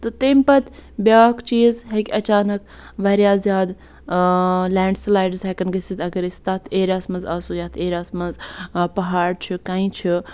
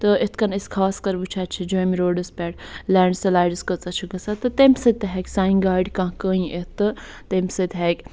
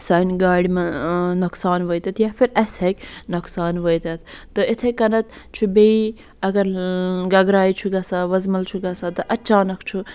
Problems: none marked